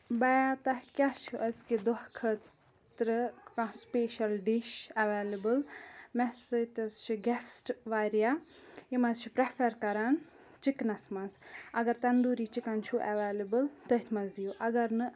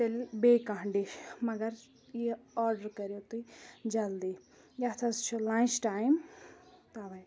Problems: background conversations at intervals